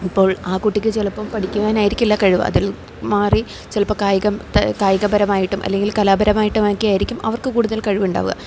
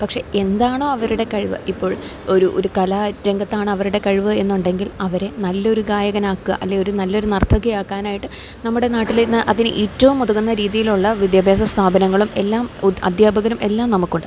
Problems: none marked